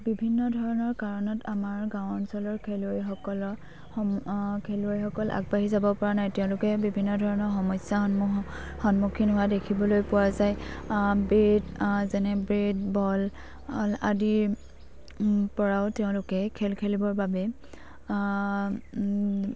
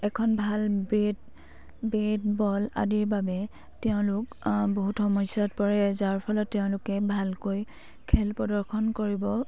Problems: none marked